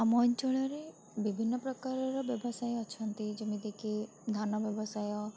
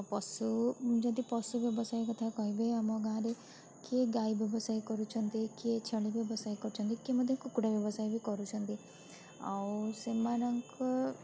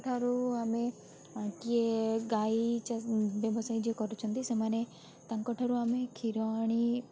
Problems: constant background noise, continuous background conversations